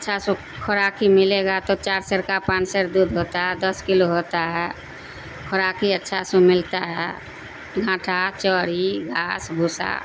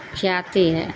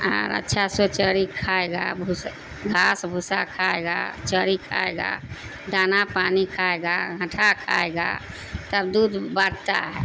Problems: constant background noise